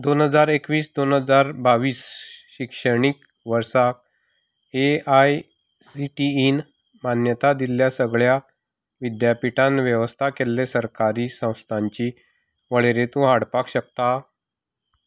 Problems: background sounds at intervals